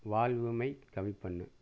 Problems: low volume